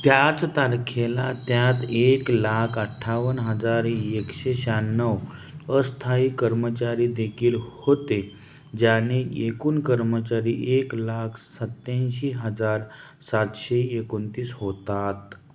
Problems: none marked